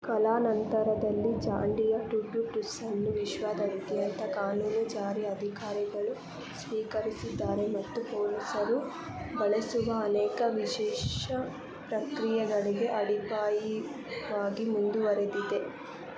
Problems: constant background noise